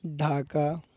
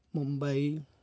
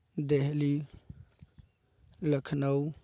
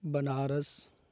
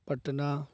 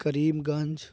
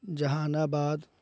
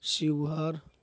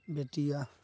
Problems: constant background noise